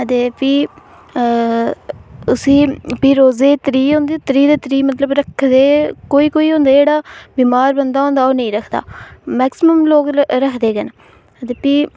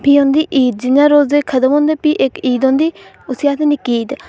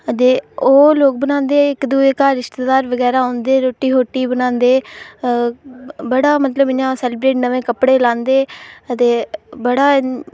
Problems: none marked